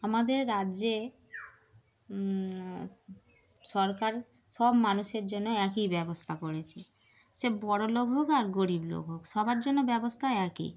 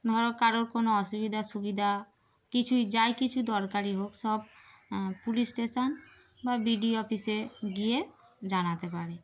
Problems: background sounds at intervals